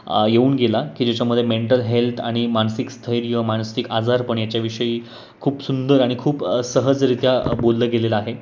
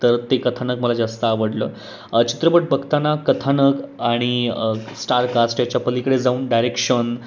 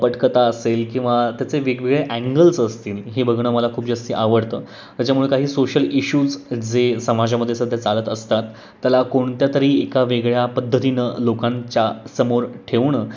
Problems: constant background noise